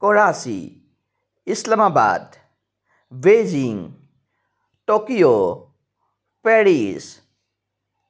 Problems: none marked